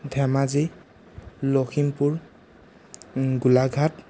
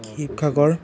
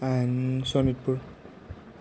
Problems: background conversations at intervals